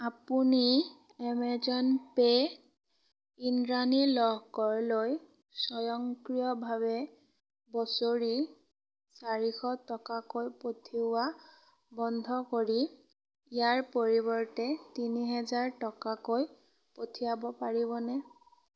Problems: background sounds at intervals